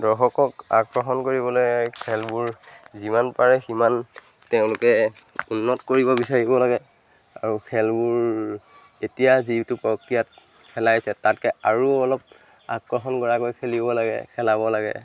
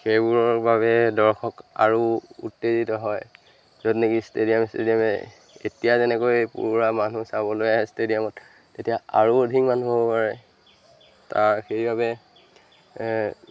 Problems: constant background noise, background conversations at intervals